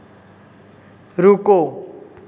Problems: constant background noise